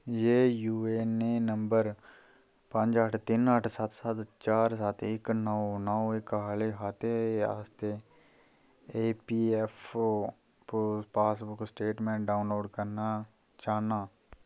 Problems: none marked